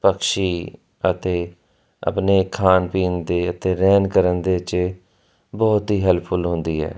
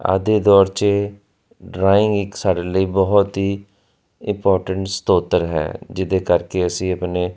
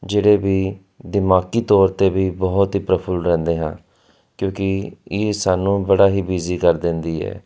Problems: constant background noise